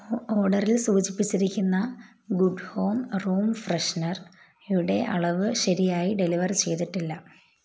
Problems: low volume